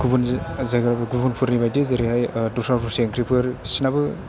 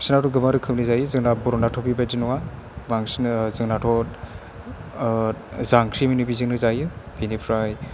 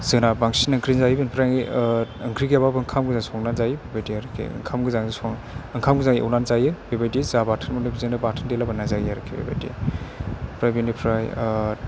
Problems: none marked